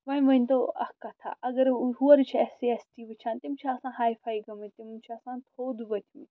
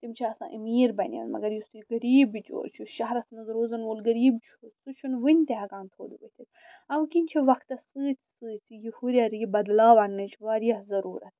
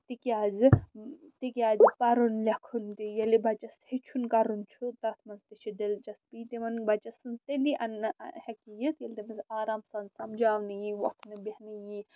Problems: none marked